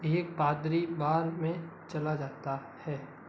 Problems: constant background noise